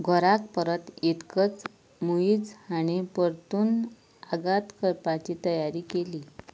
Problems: none marked